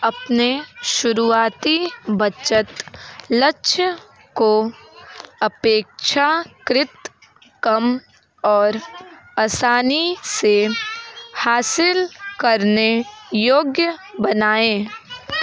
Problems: constant background noise, continuous background conversations